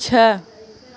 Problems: constant background noise, continuous background conversations